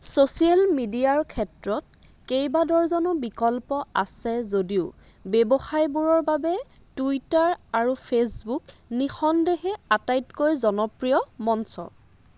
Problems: constant background noise